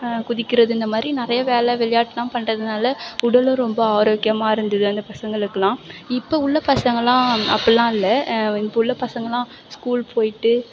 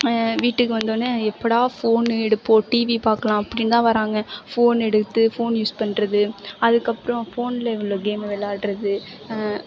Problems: background sounds at intervals